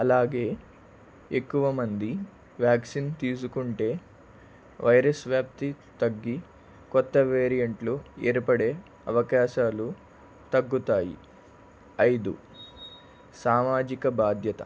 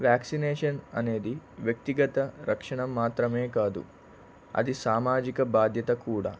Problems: none marked